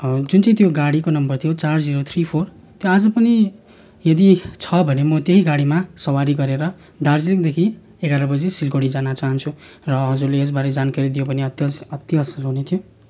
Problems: background sounds at intervals